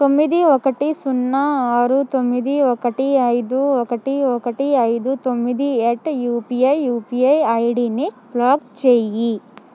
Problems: none marked